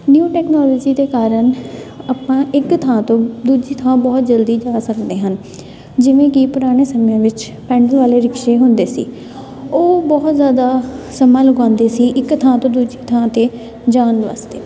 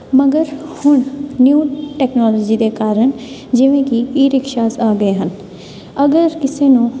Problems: constant background noise, continuous background conversations